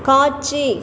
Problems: none marked